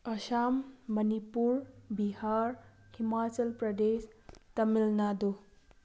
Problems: background sounds at intervals